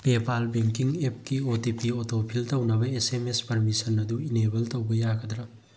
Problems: none marked